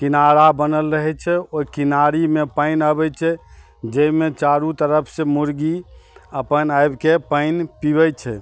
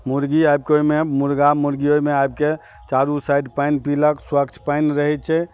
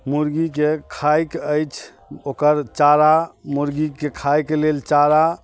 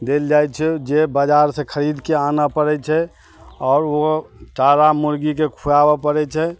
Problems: none marked